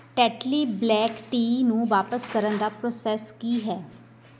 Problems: background conversations at intervals